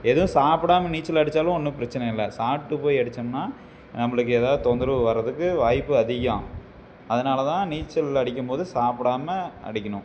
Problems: background sounds at intervals